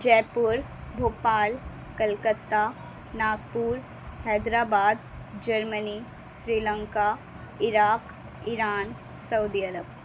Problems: constant background noise